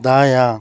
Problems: constant background noise